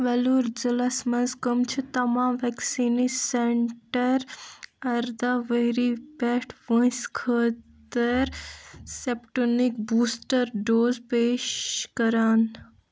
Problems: constant background noise